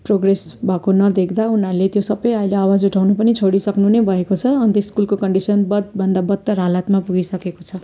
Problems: constant background noise